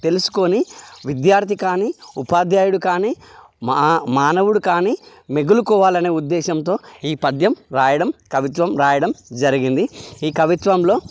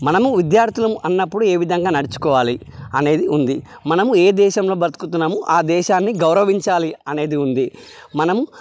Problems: none marked